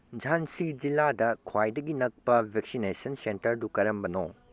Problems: none marked